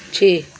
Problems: none marked